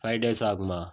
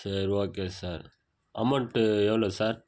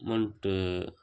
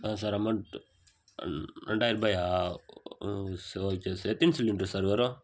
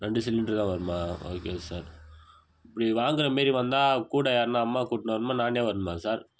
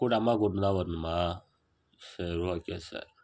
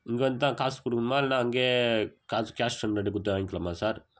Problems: background sounds at intervals